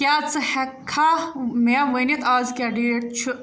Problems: none marked